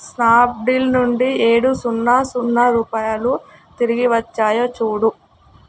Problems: background sounds at intervals